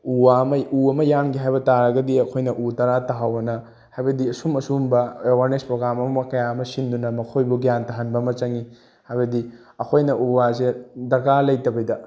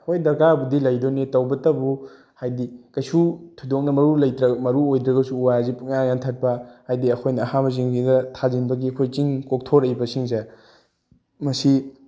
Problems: none marked